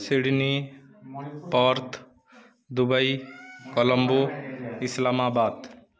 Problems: none marked